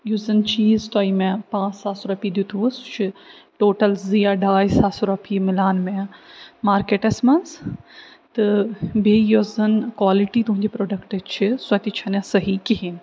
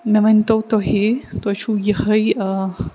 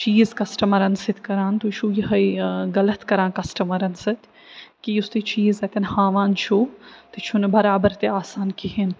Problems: none marked